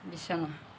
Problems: none marked